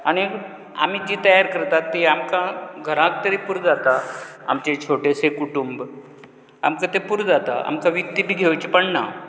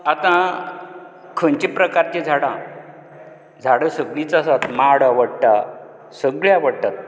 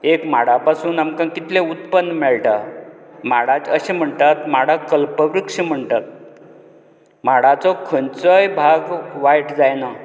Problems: background sounds at intervals